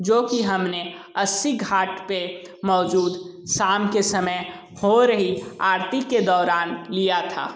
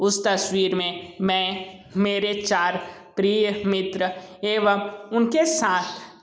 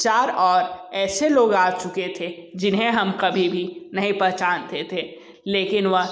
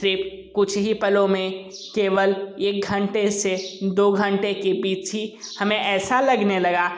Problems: constant background noise